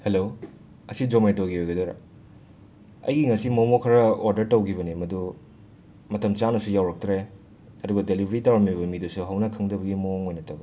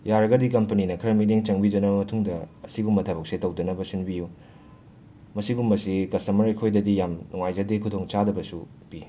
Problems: none marked